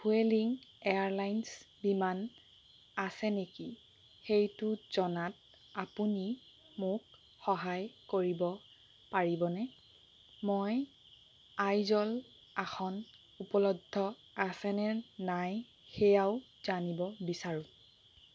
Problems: constant background noise